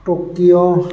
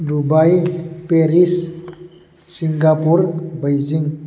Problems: constant background noise